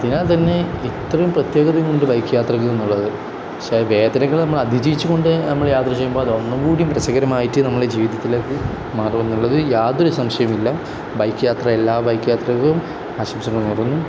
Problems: none marked